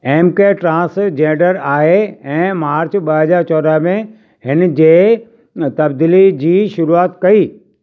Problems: constant background noise